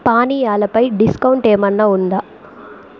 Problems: continuous background conversations